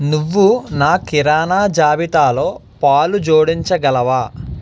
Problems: none marked